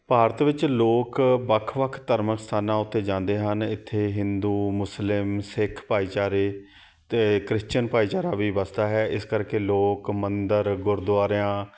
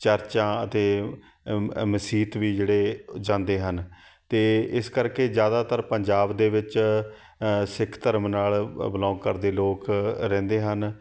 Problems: background sounds at intervals